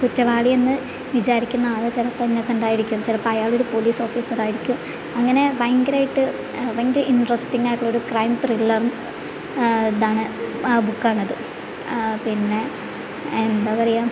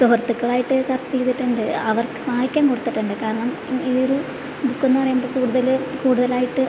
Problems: none marked